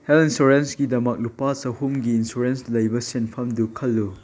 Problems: none marked